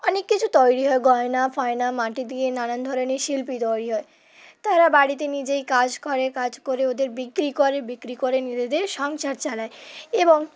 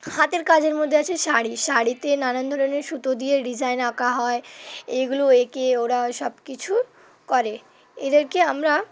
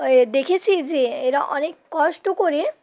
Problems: none marked